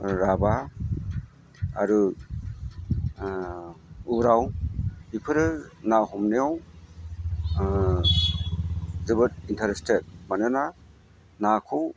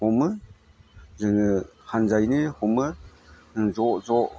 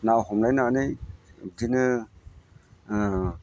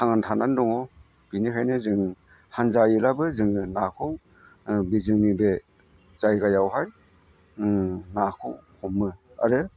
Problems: none marked